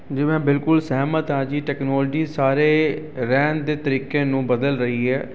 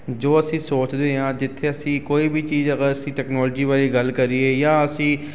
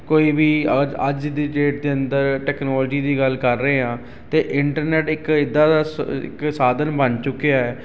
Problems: constant background noise